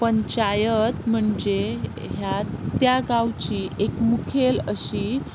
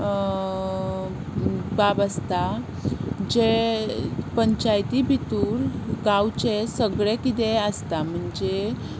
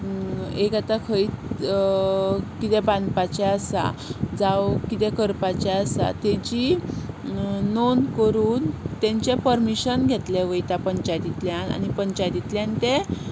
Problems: constant background noise